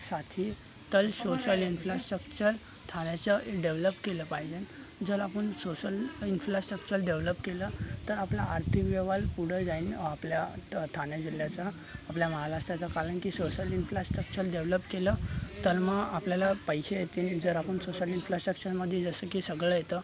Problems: constant background noise, continuous background conversations